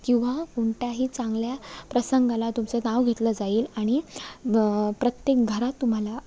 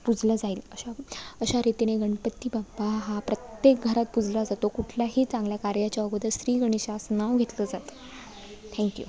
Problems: background sounds at intervals, background conversations at intervals